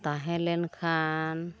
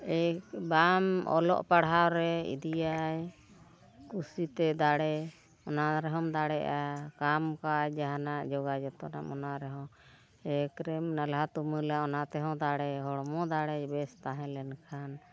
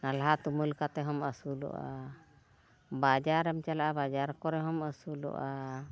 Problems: none marked